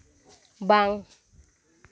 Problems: none marked